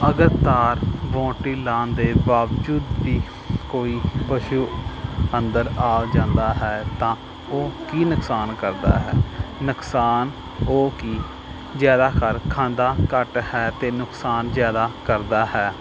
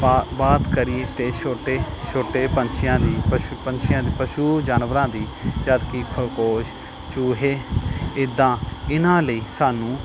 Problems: none marked